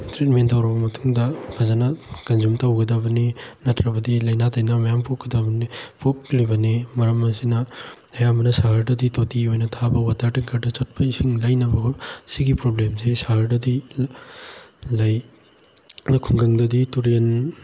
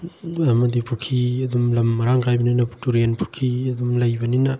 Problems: none marked